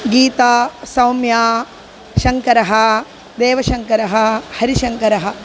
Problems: constant background noise